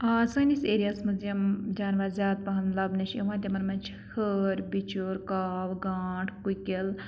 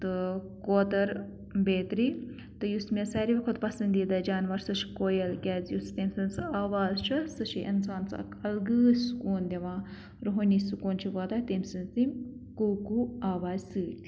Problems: none marked